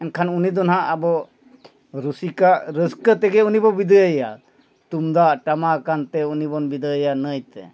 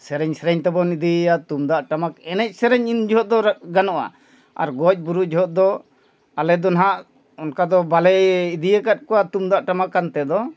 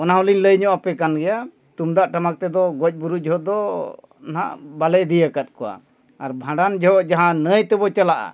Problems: none marked